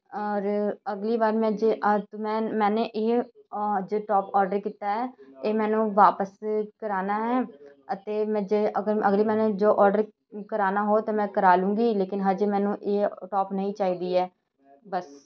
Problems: continuous background conversations